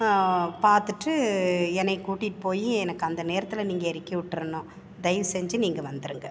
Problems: background sounds at intervals